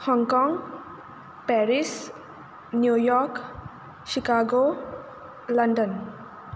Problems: background sounds at intervals